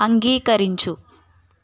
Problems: constant background noise